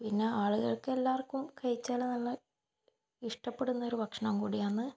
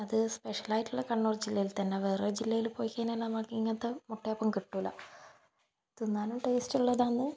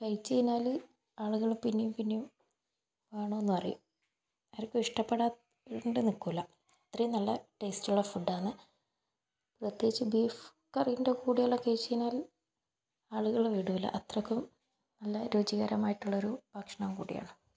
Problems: none marked